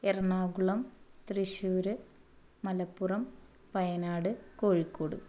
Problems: low volume